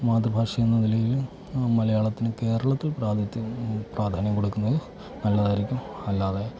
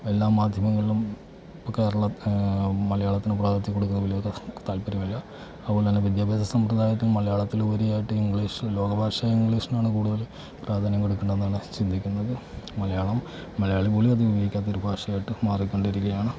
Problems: background sounds at intervals, low volume